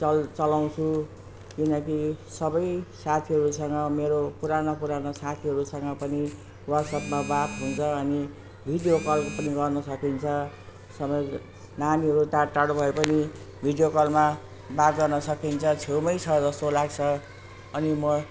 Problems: constant background noise